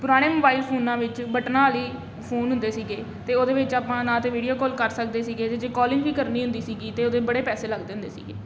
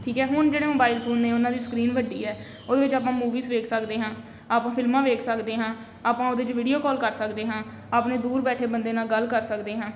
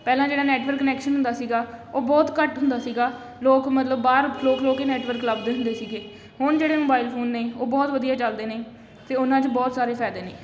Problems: constant background noise